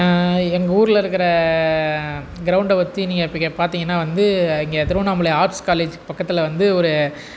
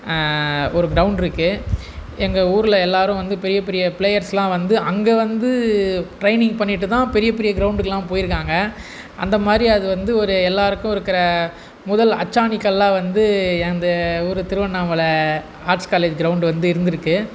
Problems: constant background noise